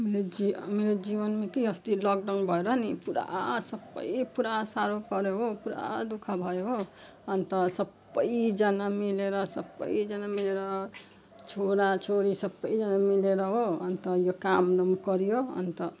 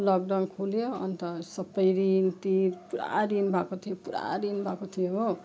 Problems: none marked